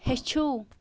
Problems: constant background noise